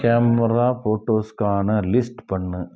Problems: background conversations at intervals